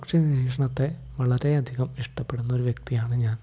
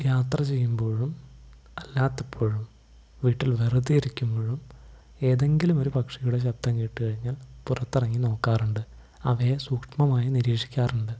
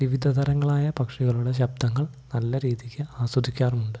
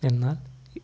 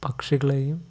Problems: none marked